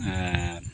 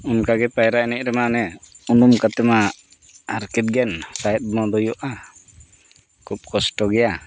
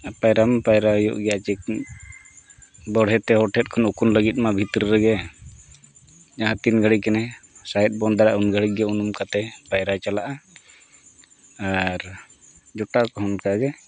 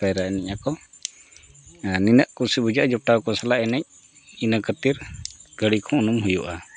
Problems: background sounds at intervals